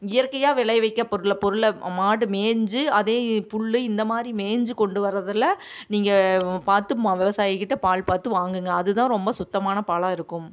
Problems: none marked